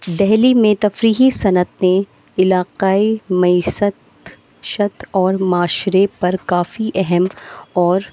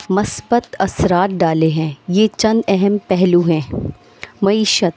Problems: constant background noise